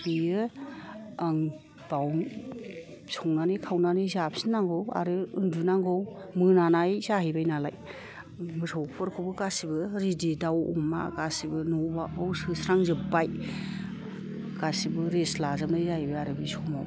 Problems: none marked